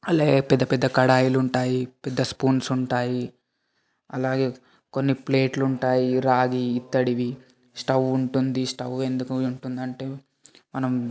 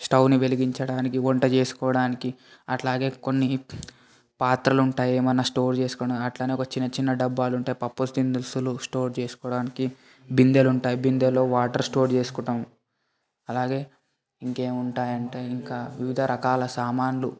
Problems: constant background noise, background conversations at intervals